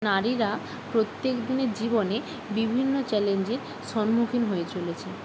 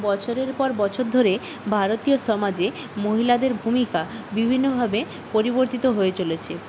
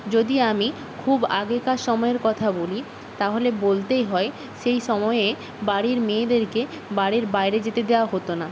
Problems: constant background noise